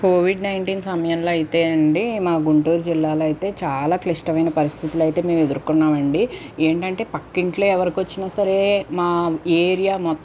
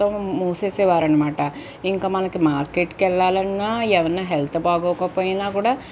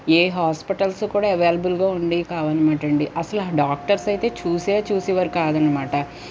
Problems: none marked